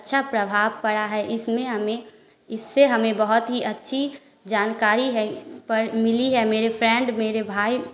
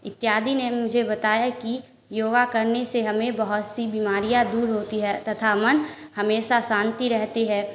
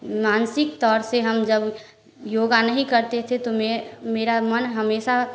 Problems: constant background noise